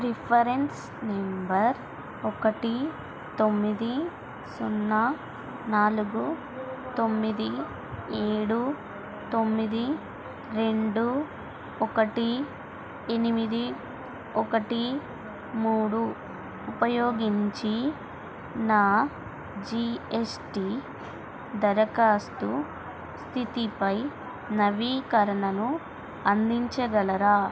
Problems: constant background noise, background conversations at intervals